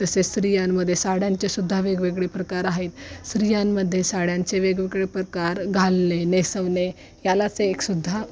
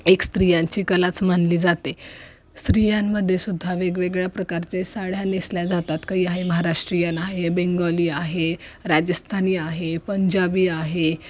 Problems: constant background noise, continuous background conversations